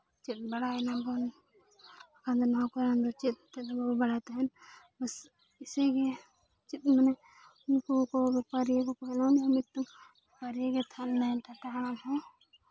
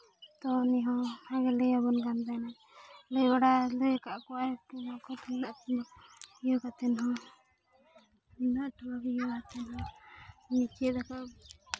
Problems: constant background noise, continuous background conversations